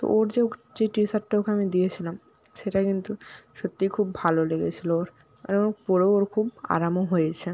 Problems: none marked